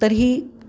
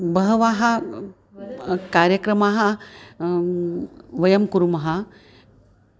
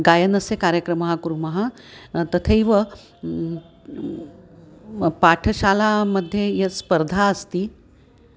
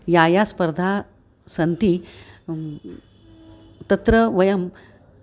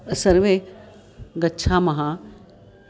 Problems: constant background noise